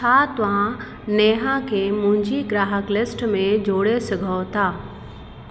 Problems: constant background noise, echo